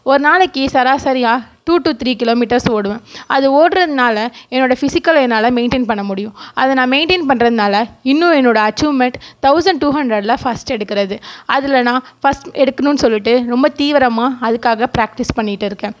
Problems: none marked